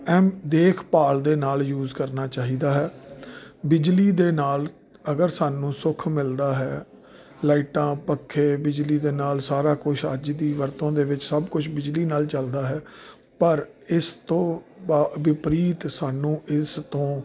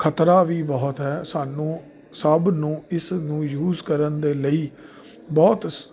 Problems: none marked